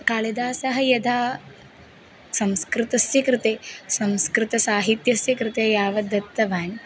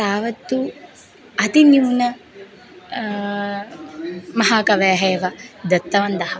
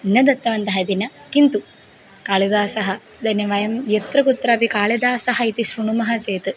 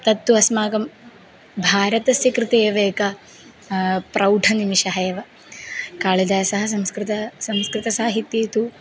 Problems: background sounds at intervals